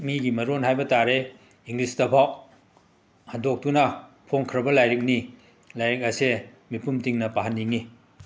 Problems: background sounds at intervals, continuous background conversations